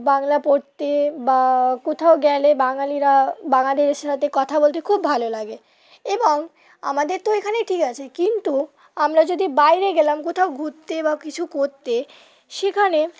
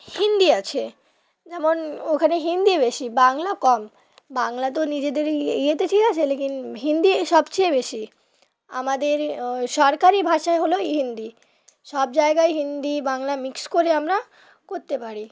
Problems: constant background noise, background conversations at intervals